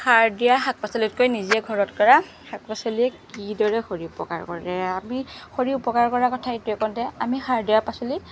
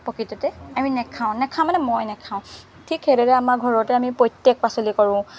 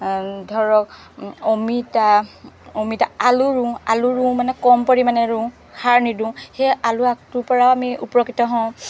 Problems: background sounds at intervals, background conversations at intervals